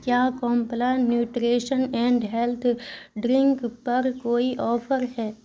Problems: constant background noise